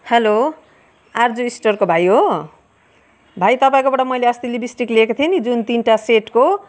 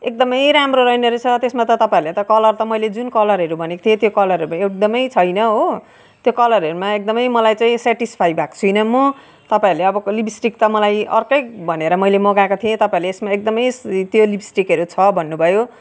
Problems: background sounds at intervals, background conversations at intervals